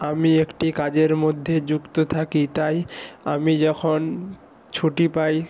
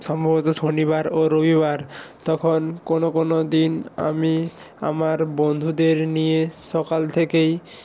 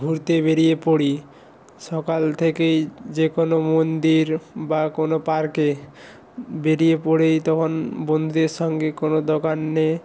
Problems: background sounds at intervals